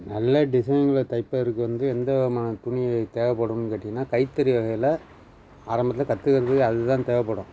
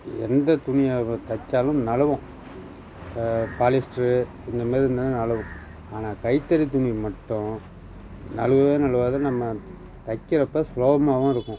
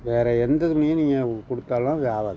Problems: constant background noise, background conversations at intervals